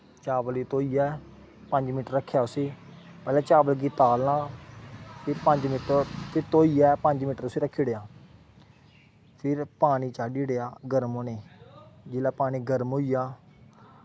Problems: background sounds at intervals